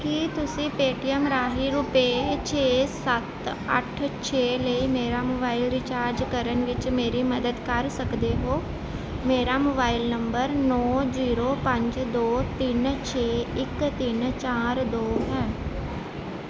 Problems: constant background noise